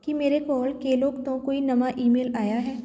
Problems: none marked